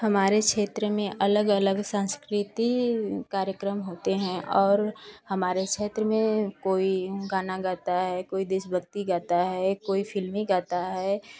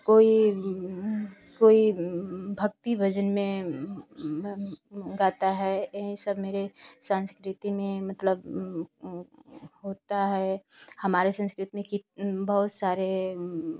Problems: constant background noise